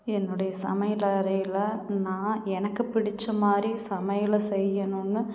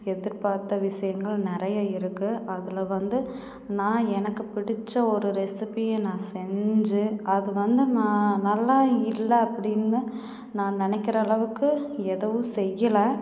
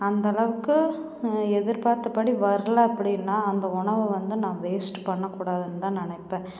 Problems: background conversations at intervals